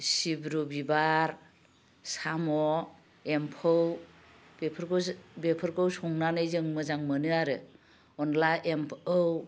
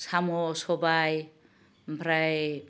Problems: low volume